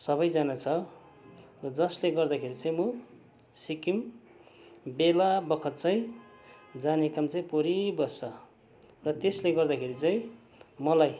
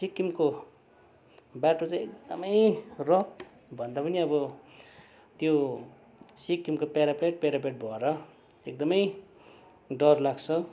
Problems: none marked